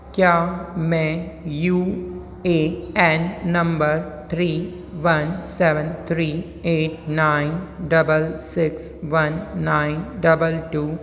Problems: constant background noise, continuous background conversations